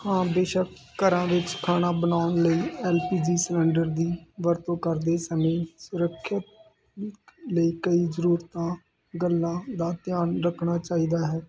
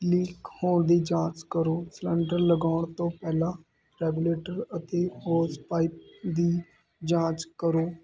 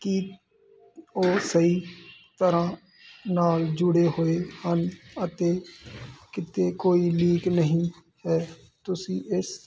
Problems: constant background noise